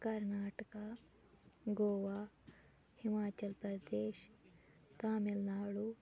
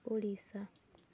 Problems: constant background noise